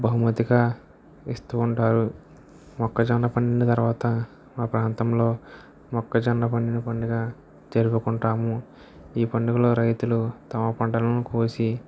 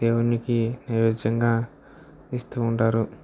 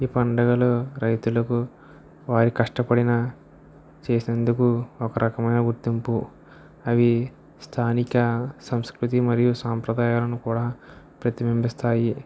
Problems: none marked